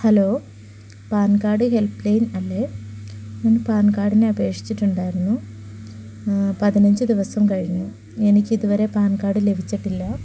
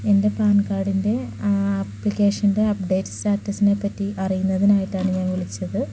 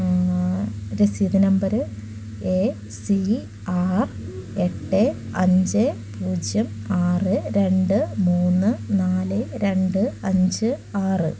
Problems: none marked